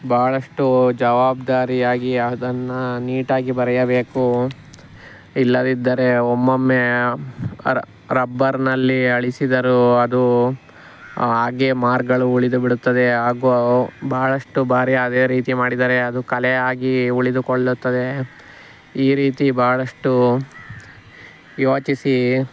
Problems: none marked